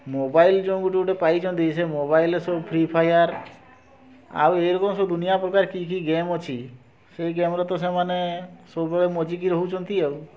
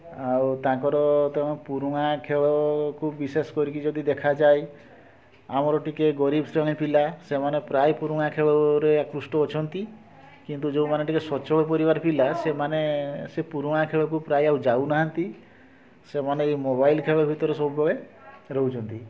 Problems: constant background noise, continuous background conversations